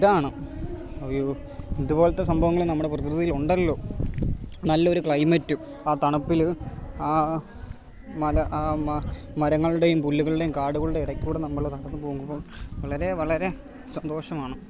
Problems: none marked